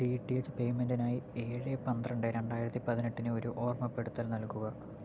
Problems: constant background noise, low volume